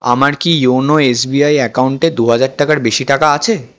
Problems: constant background noise